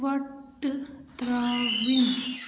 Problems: constant background noise